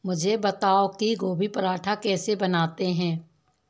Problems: constant background noise